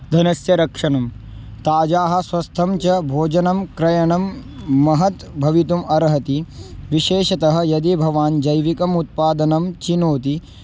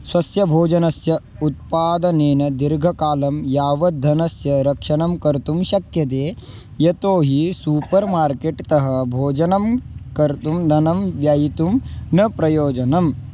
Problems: none marked